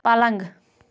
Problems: constant background noise